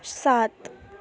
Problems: background sounds at intervals